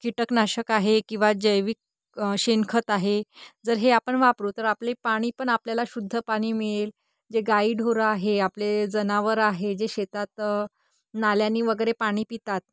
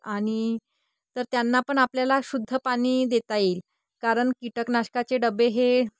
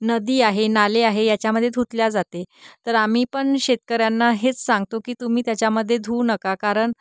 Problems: background sounds at intervals